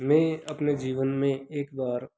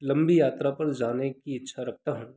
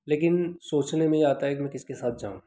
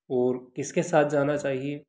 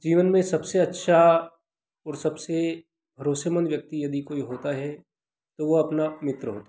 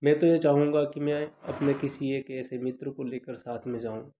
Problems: constant background noise